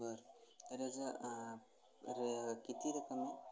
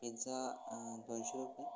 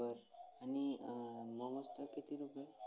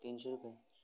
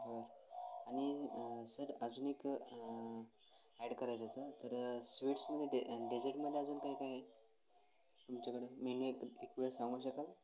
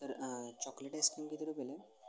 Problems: constant background noise